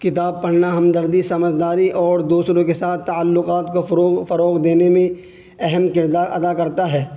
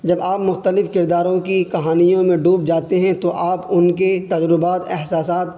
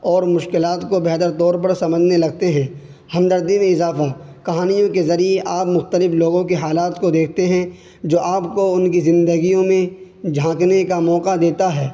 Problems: constant background noise